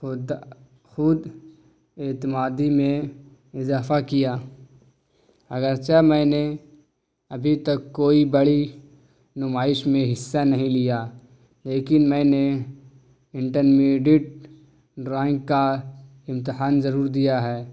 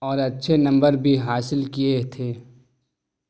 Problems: none marked